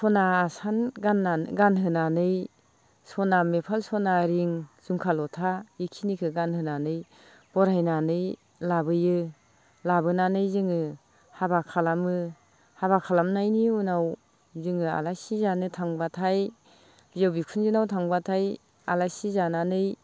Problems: constant background noise